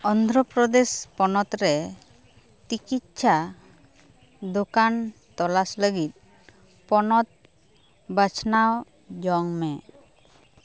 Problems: background sounds at intervals, background conversations at intervals